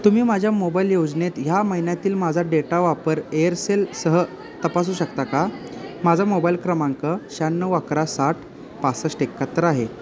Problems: constant background noise, background conversations at intervals